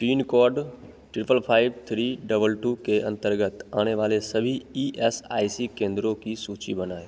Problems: constant background noise, echo